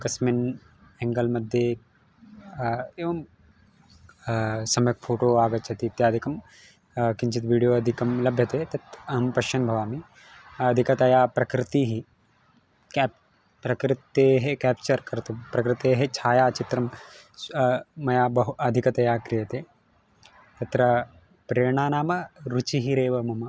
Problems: none marked